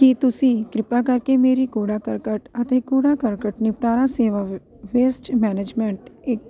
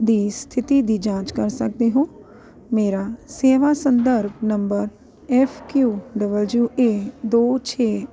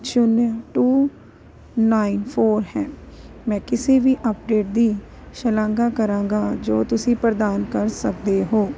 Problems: none marked